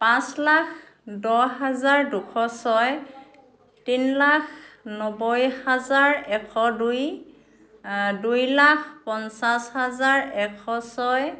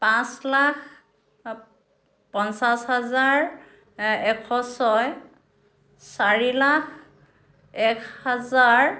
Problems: background conversations at intervals